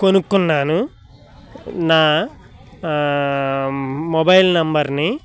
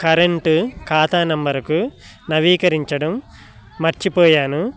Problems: continuous background conversations